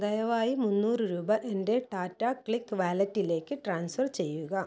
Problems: none marked